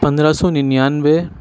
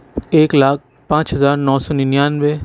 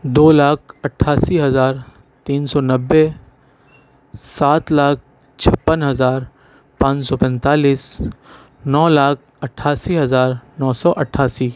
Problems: none marked